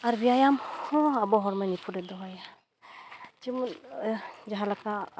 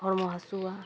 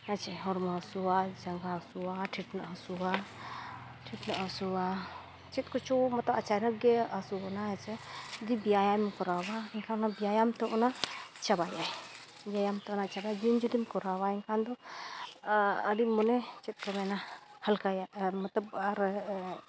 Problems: background sounds at intervals